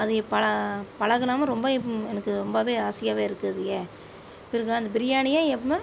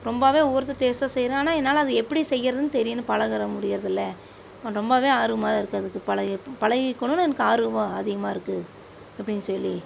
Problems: none marked